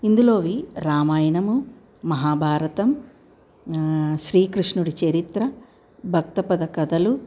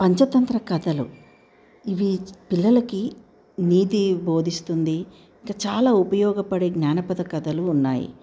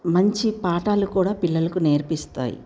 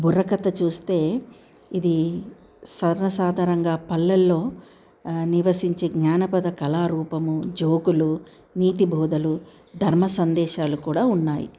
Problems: none marked